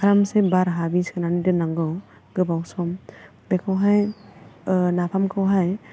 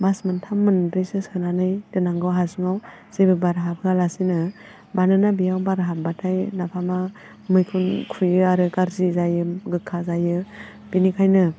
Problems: constant background noise